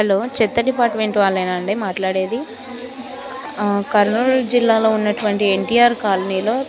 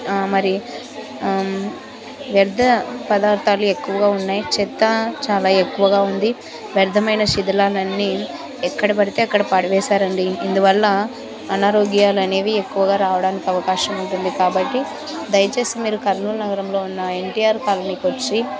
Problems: constant background noise